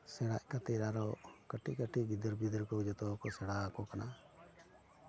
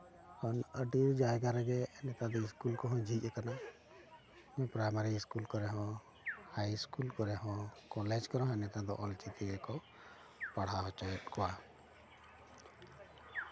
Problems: background sounds at intervals, background conversations at intervals